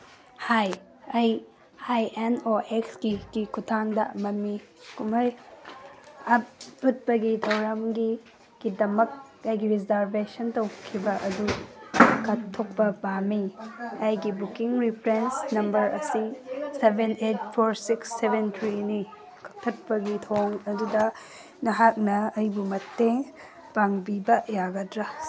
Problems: constant background noise